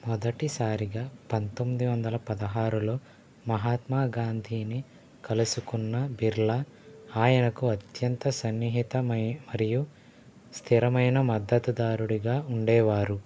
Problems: none marked